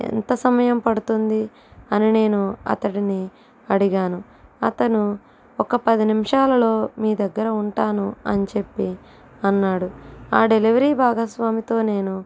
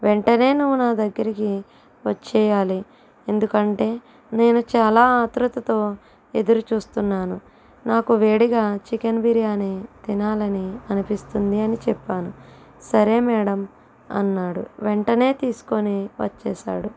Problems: constant background noise